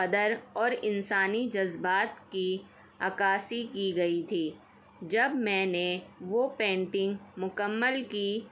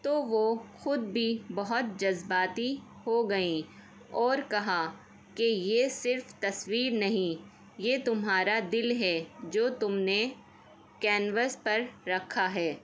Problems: none marked